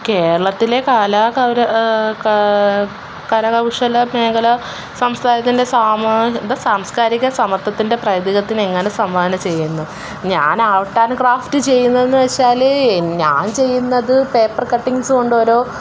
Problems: background sounds at intervals